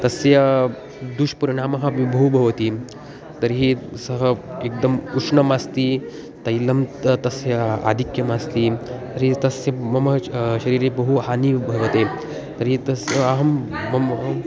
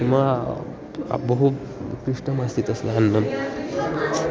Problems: constant background noise, continuous background conversations